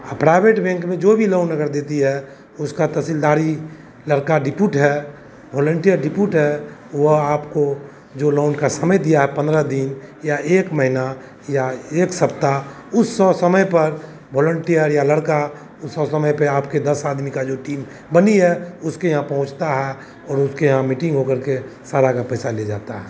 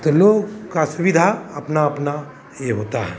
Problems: none marked